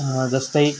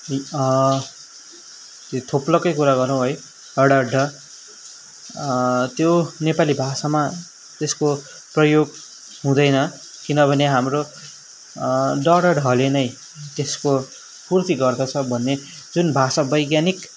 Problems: background sounds at intervals